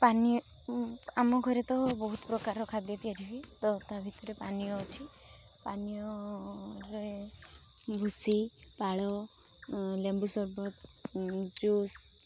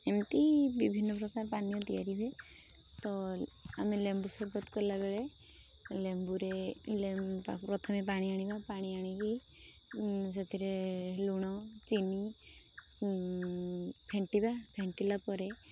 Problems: constant background noise